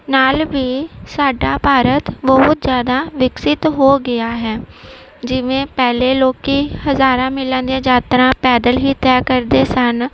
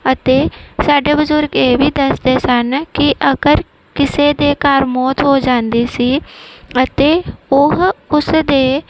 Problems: background sounds at intervals